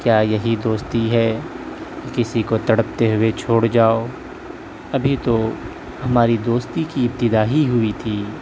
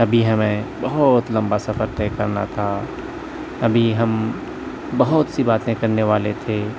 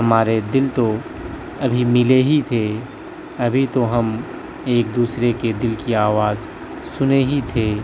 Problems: constant background noise